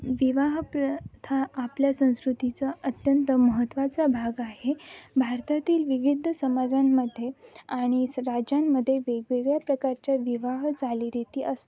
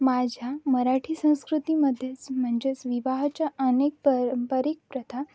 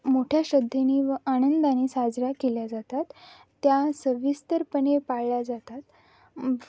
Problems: none marked